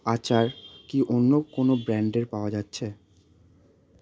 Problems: none marked